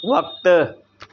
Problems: constant background noise